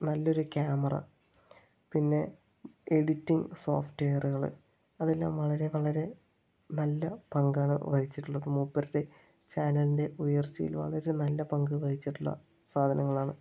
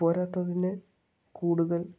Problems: low volume